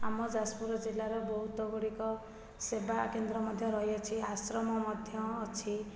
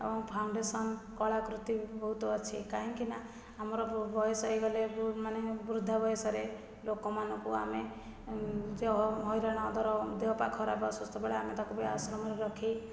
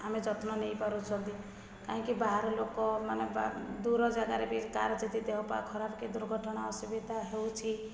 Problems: low volume